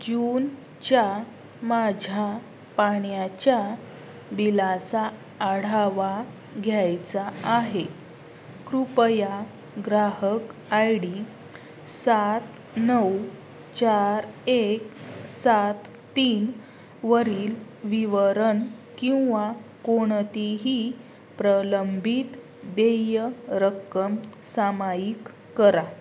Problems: constant background noise